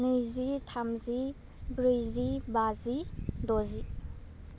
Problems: none marked